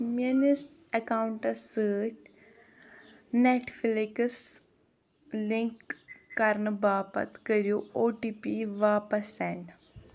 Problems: background sounds at intervals